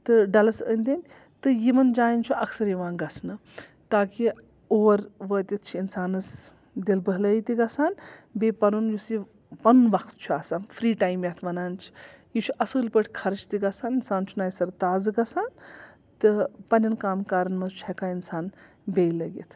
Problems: background sounds at intervals